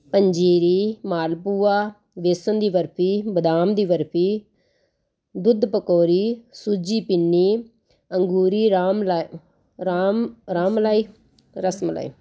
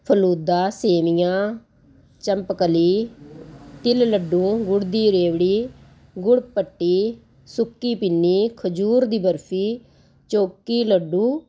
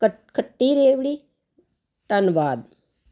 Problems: constant background noise